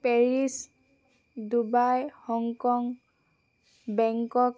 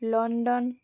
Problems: none marked